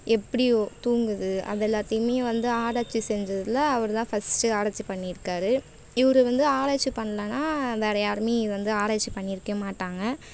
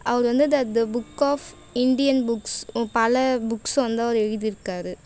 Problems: background sounds at intervals